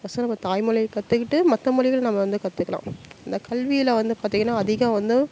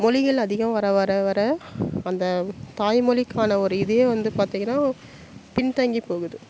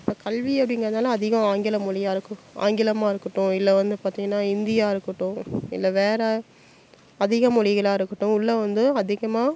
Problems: none marked